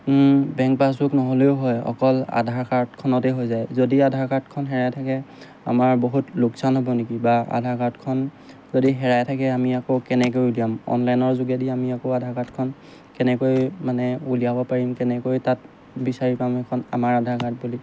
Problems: background sounds at intervals